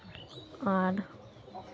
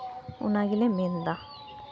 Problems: constant background noise, continuous background conversations